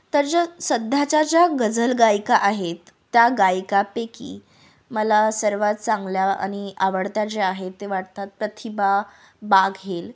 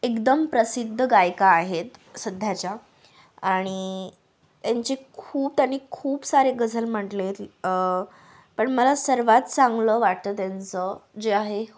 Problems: background sounds at intervals